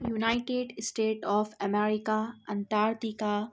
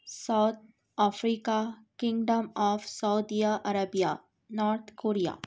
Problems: none marked